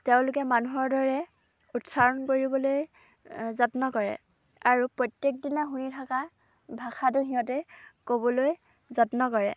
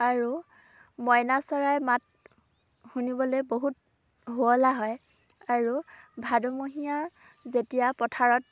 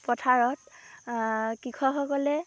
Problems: none marked